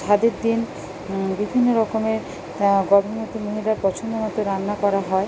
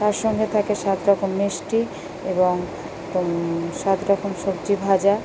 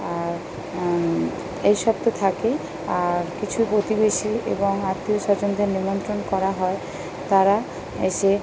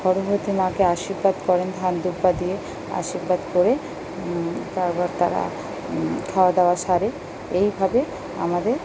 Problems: constant background noise